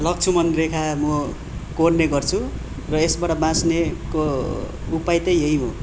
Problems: background sounds at intervals